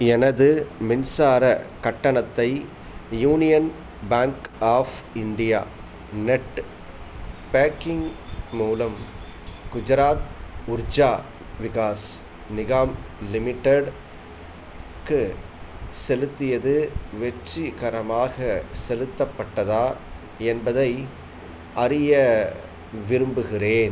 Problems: none marked